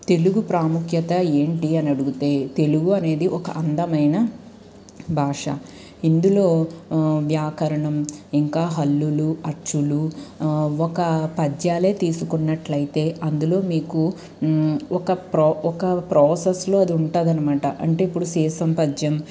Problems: none marked